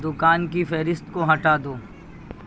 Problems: constant background noise